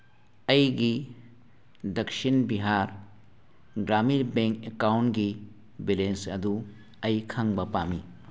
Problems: none marked